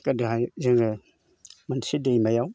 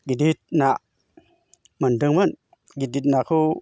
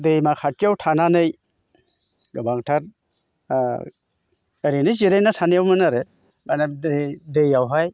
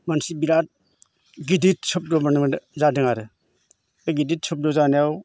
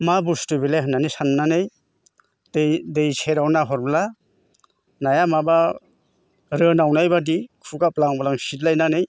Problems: constant background noise